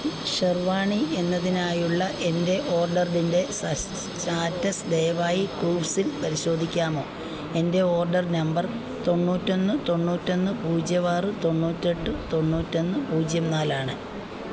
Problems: none marked